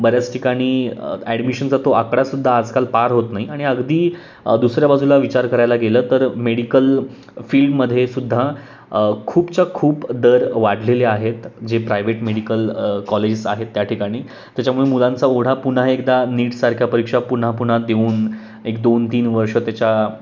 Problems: constant background noise, background conversations at intervals